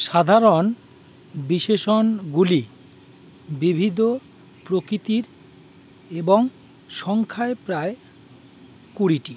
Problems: none marked